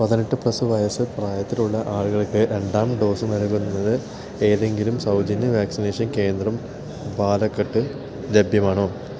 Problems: constant background noise